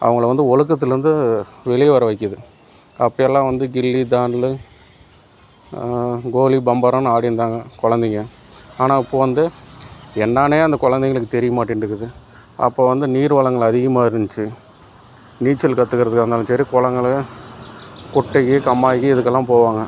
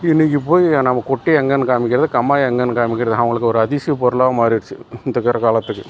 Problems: background sounds at intervals